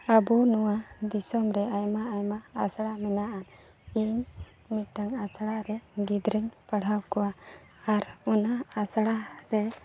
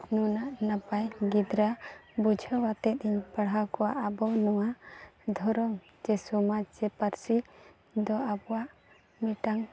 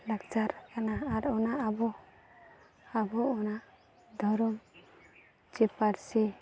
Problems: none marked